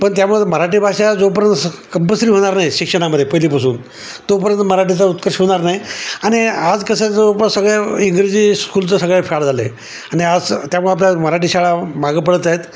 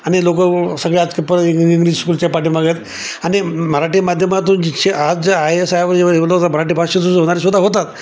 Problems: constant background noise, background conversations at intervals